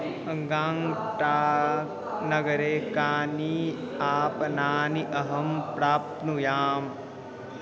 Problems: constant background noise, continuous background conversations